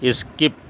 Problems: constant background noise